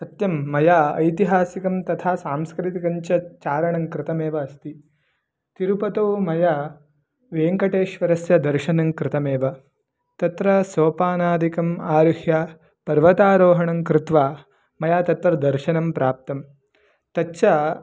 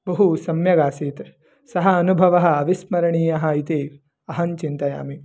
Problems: none marked